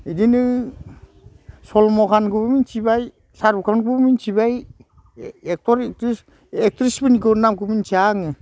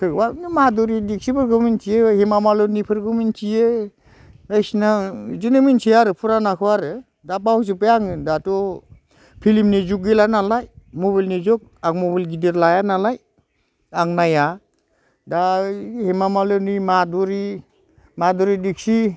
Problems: constant background noise